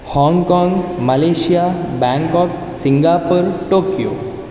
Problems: none marked